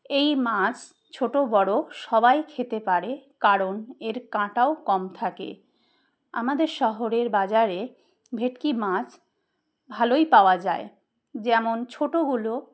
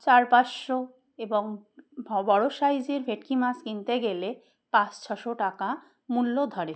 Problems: background sounds at intervals